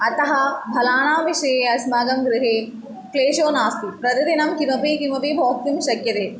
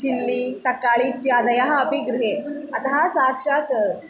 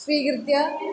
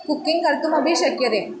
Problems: constant background noise, continuous background conversations